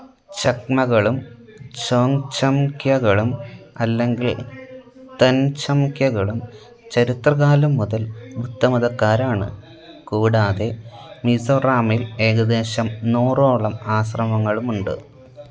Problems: constant background noise